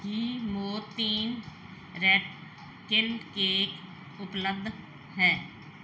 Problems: none marked